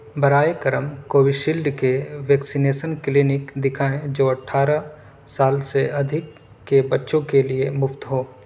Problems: none marked